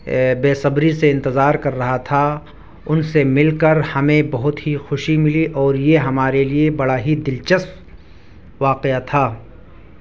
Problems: none marked